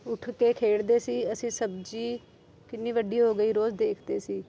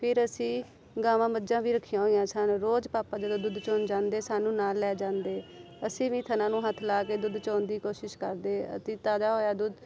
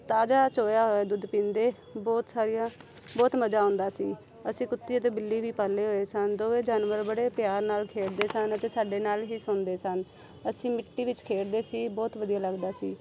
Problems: none marked